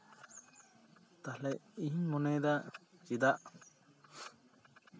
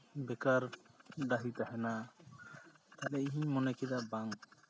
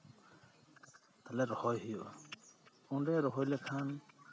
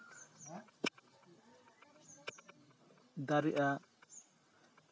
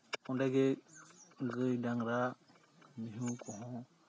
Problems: none marked